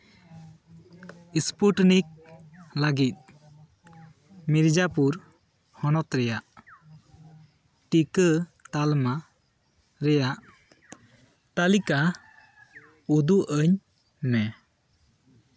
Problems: background conversations at intervals